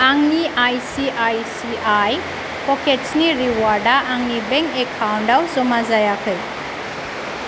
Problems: constant background noise